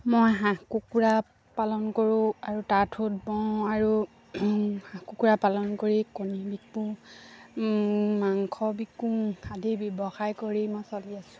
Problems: low volume